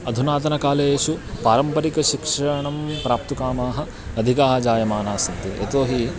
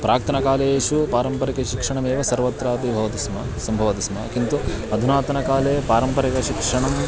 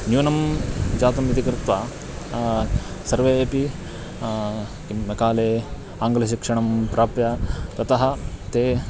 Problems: constant background noise, background conversations at intervals